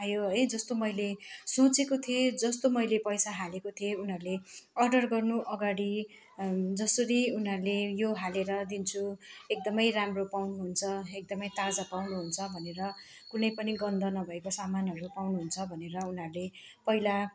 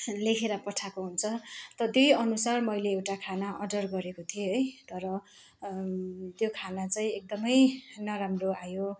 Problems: none marked